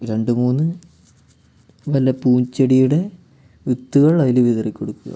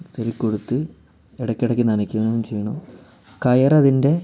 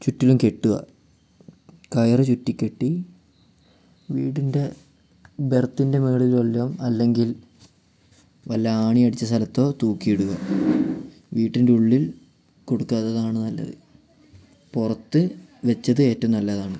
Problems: none marked